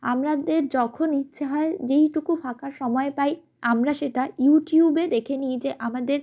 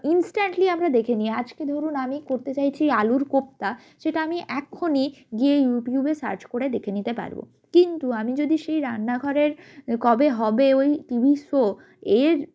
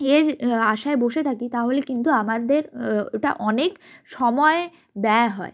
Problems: none marked